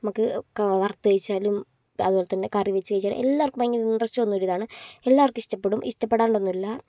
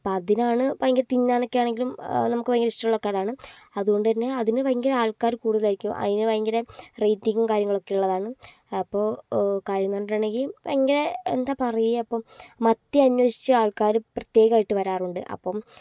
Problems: none marked